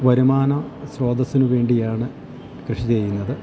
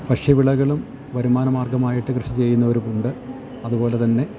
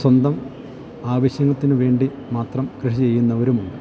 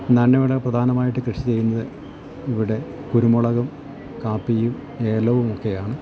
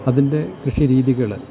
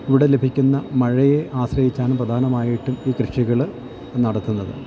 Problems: constant background noise, low volume